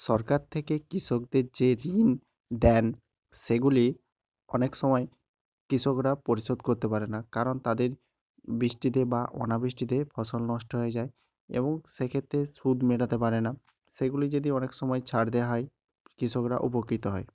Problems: none marked